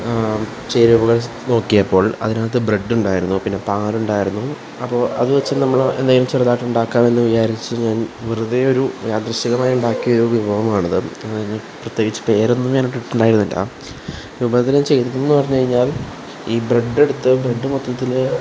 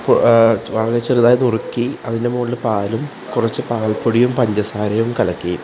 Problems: constant background noise